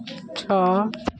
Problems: none marked